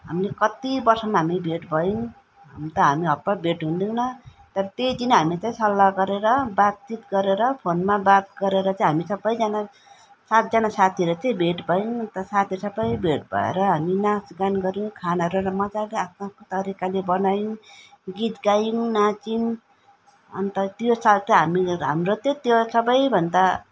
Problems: none marked